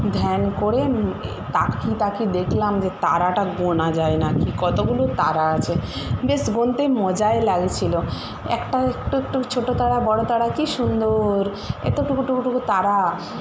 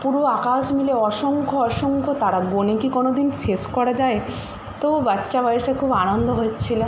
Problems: constant background noise